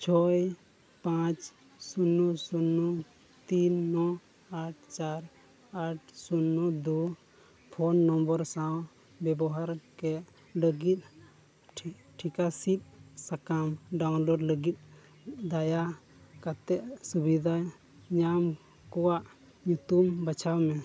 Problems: background sounds at intervals